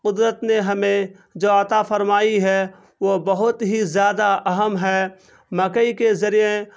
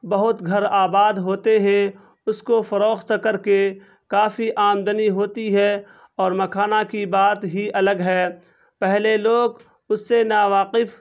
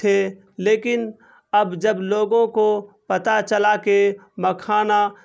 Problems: constant background noise